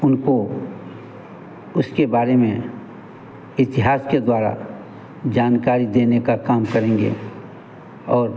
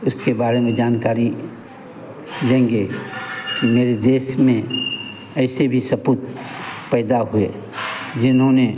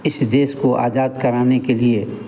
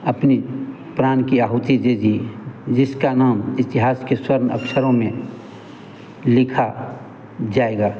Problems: constant background noise